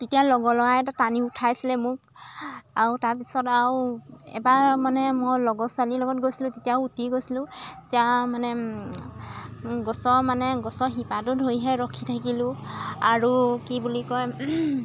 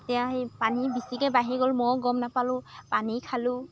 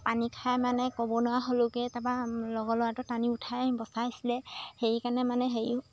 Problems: constant background noise